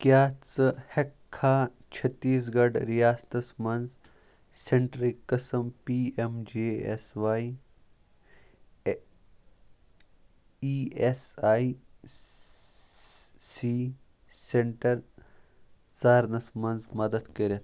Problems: background sounds at intervals